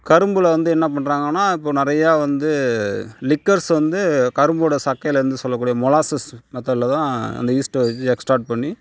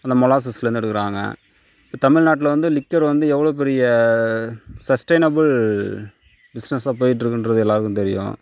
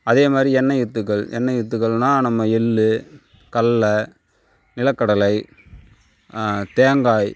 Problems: none marked